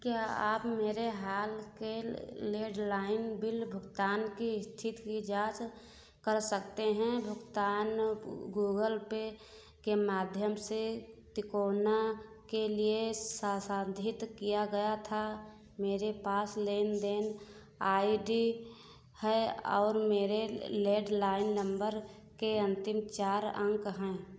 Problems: none marked